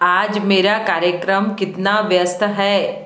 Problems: constant background noise